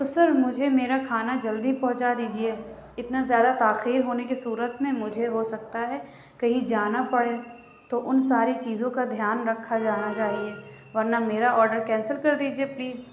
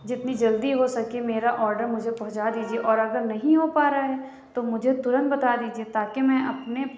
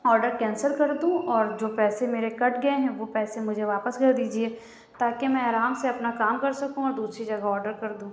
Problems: none marked